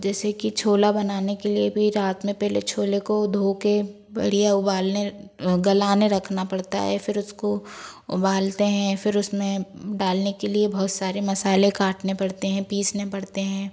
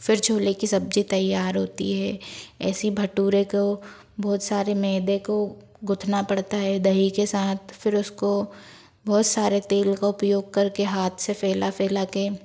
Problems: background sounds at intervals